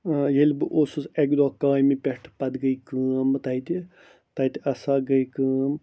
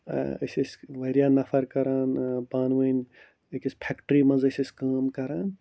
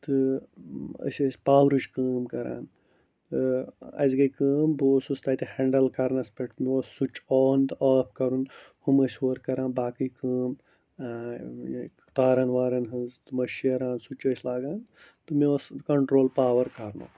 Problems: low volume